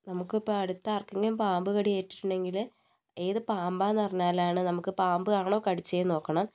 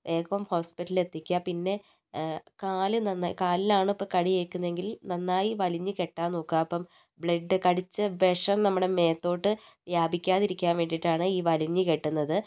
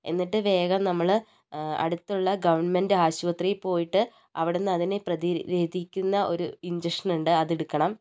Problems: none marked